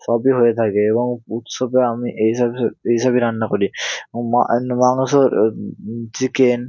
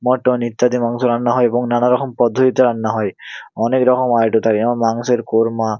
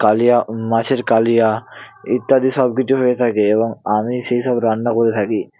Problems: constant background noise